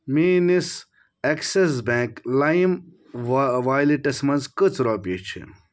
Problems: none marked